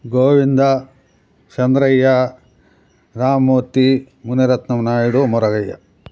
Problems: background sounds at intervals